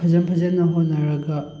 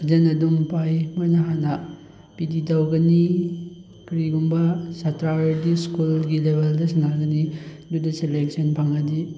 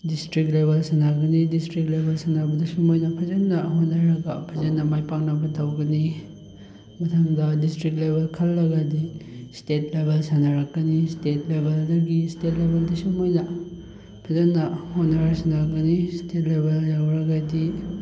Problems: none marked